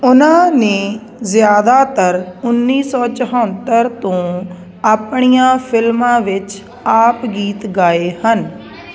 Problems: constant background noise